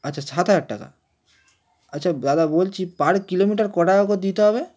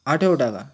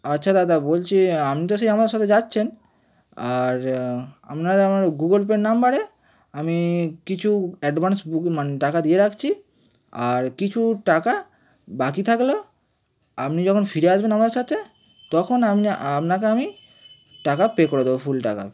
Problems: constant background noise, background conversations at intervals